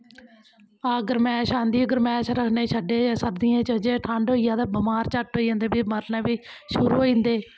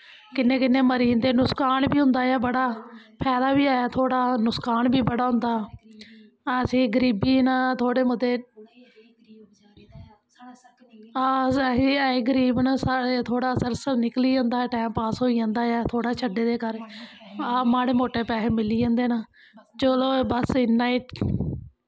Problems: none marked